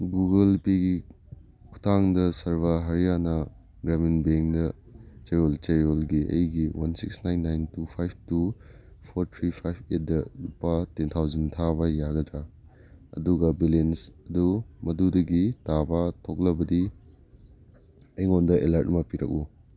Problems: background sounds at intervals